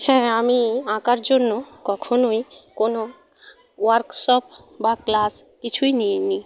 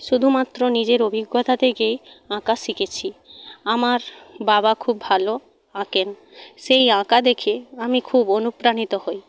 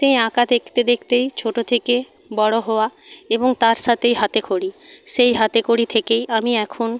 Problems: none marked